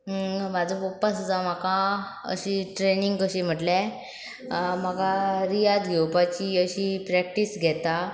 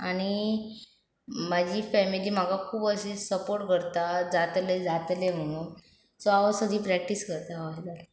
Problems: none marked